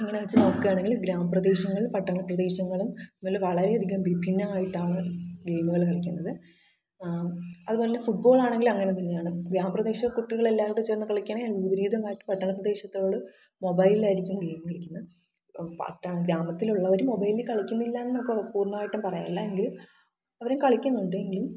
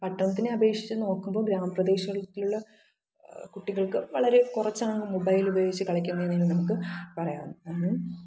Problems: background sounds at intervals, low volume